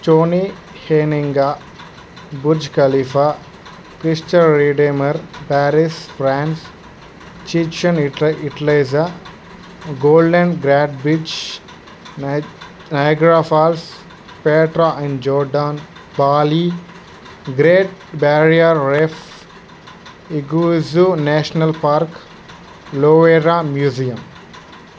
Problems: constant background noise